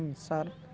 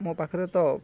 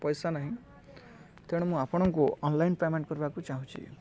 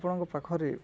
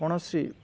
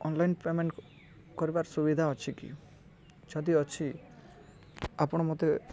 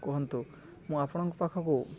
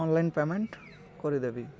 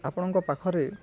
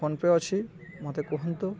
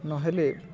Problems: none marked